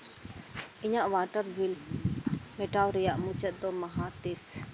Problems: constant background noise